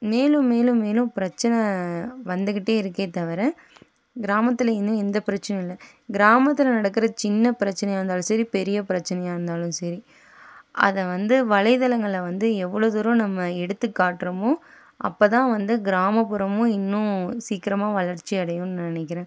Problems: none marked